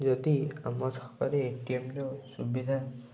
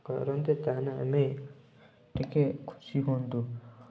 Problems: low volume